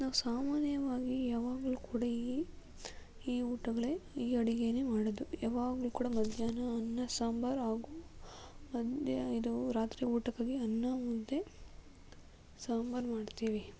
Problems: low volume